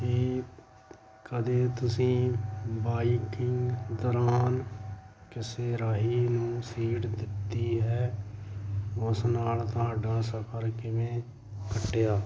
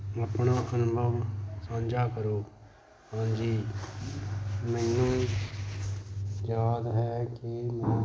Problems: background sounds at intervals